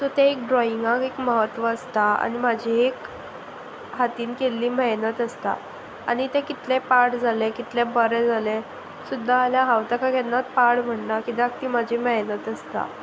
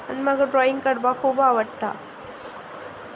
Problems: constant background noise